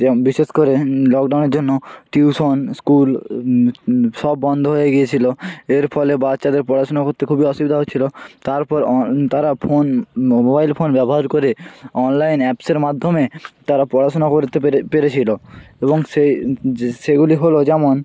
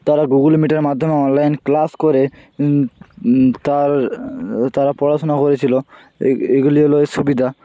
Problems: none marked